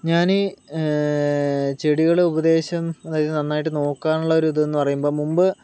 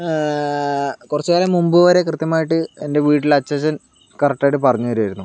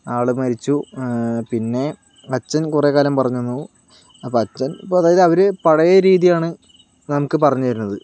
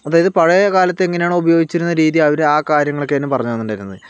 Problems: none marked